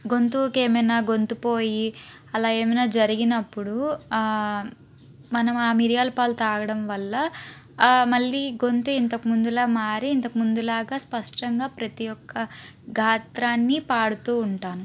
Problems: constant background noise